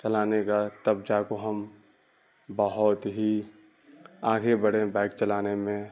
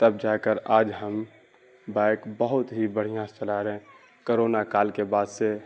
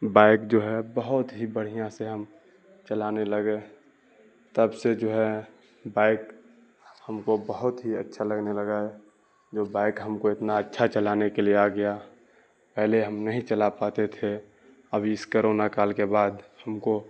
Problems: none marked